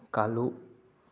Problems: low volume